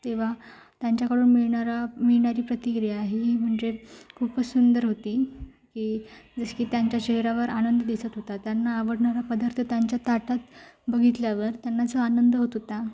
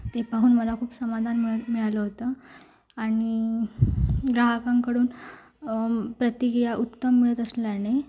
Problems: constant background noise, background conversations at intervals